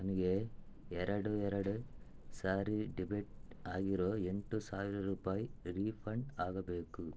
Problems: low volume